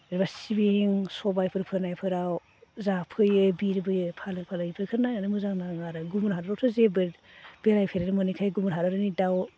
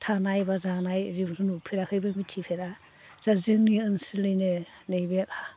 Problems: constant background noise